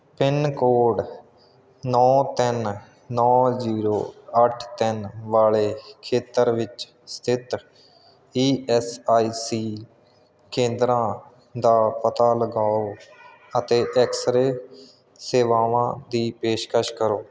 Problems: background sounds at intervals